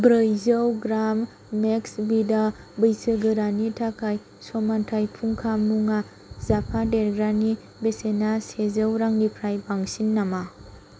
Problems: none marked